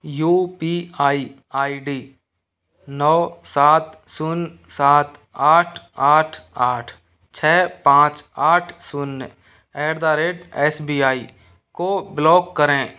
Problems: none marked